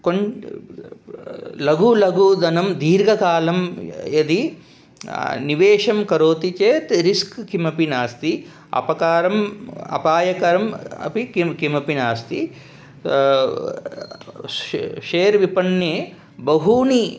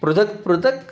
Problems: none marked